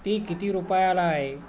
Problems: constant background noise